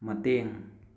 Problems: none marked